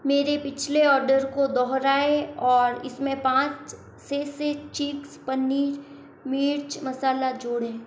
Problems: constant background noise